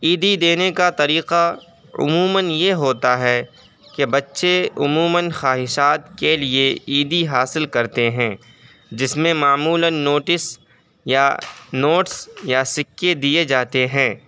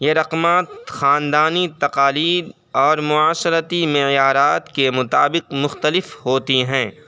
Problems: background sounds at intervals